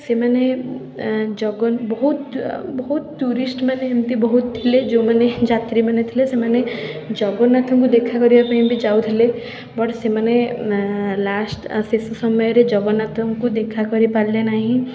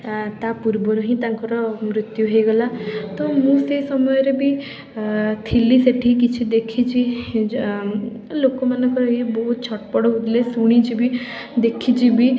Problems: background sounds at intervals, continuous background conversations